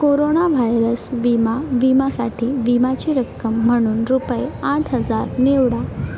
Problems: constant background noise, background conversations at intervals